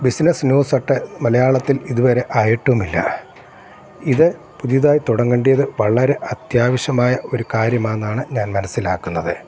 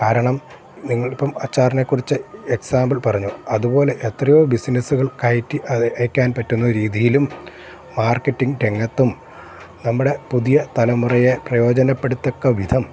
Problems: constant background noise